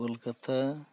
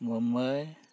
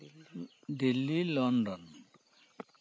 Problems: background sounds at intervals